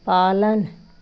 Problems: constant background noise